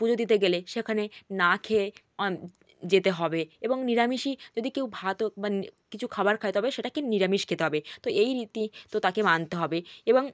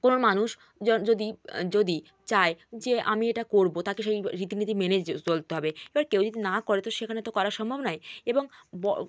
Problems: none marked